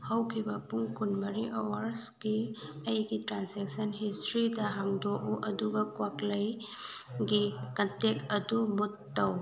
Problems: background conversations at intervals